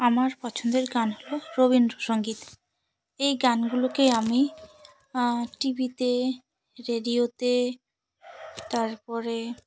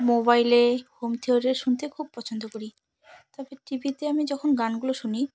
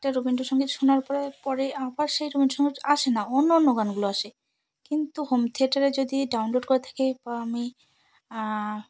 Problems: constant background noise